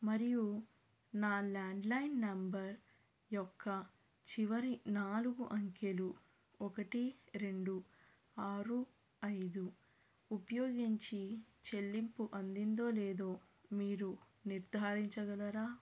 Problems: low volume